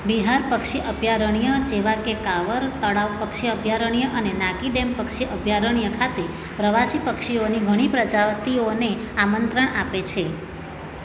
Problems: none marked